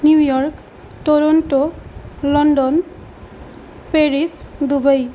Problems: constant background noise